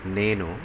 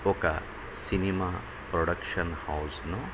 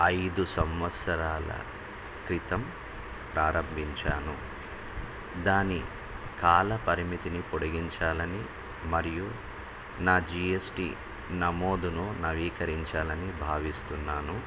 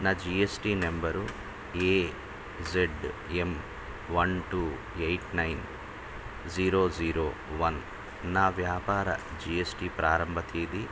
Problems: constant background noise